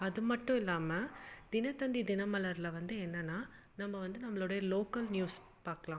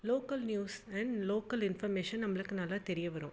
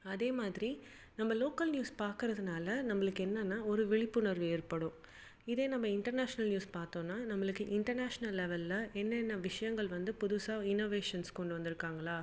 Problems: background sounds at intervals